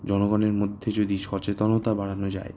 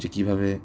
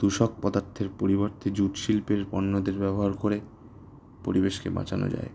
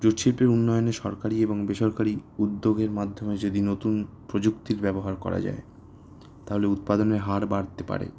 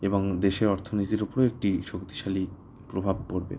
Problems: background sounds at intervals